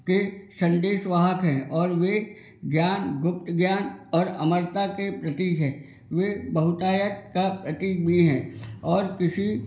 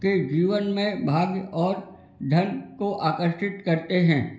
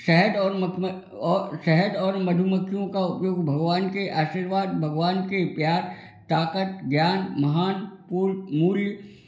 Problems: constant background noise